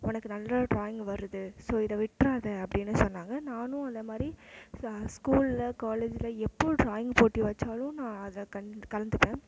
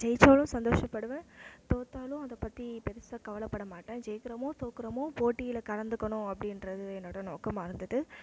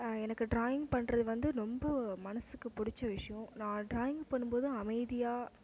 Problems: background sounds at intervals